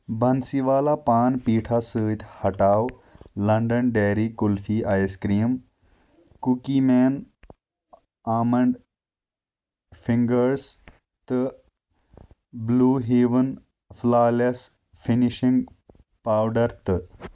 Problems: none marked